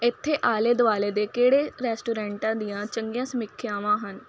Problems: constant background noise